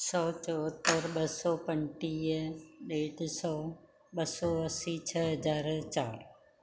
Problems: none marked